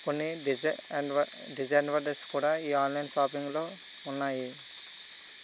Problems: constant background noise